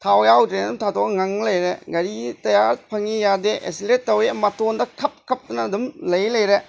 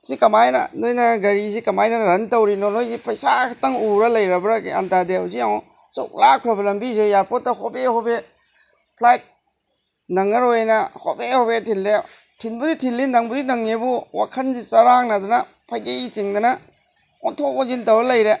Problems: background sounds at intervals